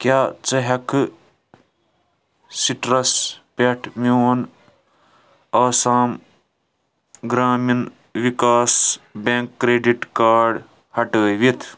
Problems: background sounds at intervals